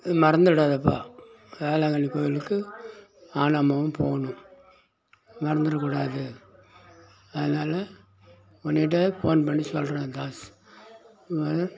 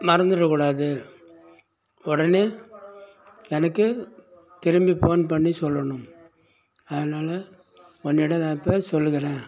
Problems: constant background noise, background conversations at intervals